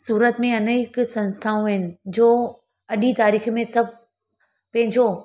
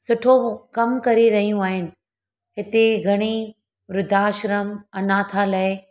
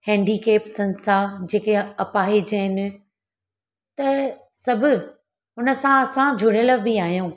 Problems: none marked